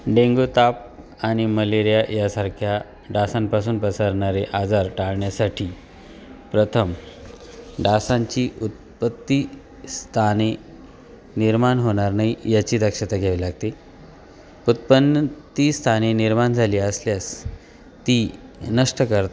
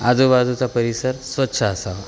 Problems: constant background noise